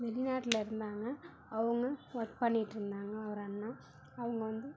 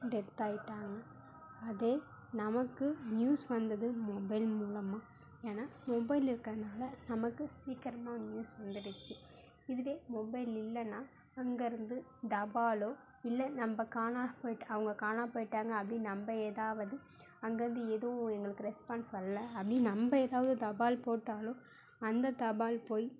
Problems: none marked